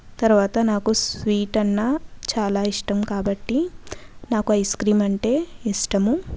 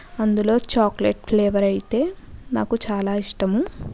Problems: background conversations at intervals